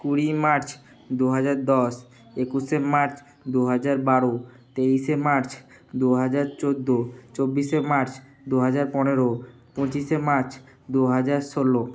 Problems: background sounds at intervals